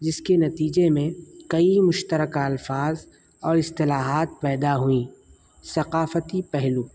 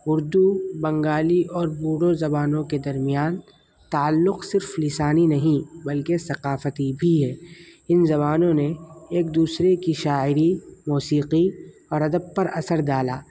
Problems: constant background noise